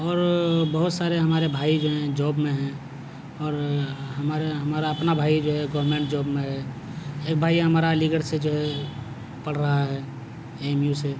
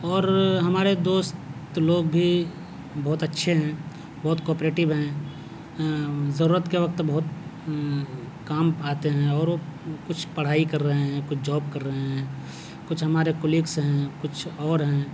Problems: none marked